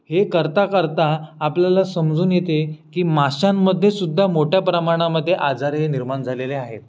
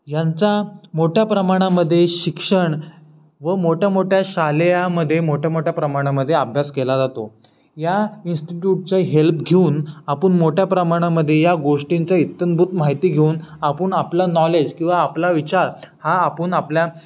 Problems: background sounds at intervals